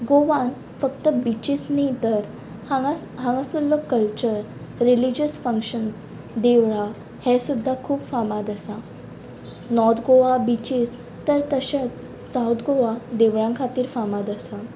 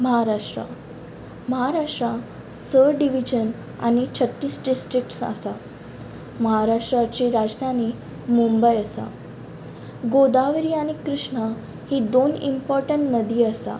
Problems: constant background noise